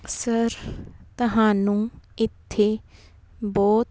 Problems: background sounds at intervals